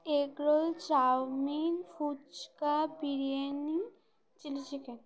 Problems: continuous background conversations